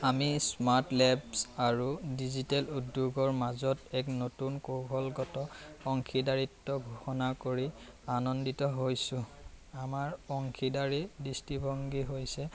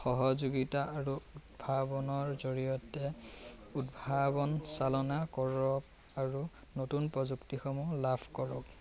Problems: constant background noise, background conversations at intervals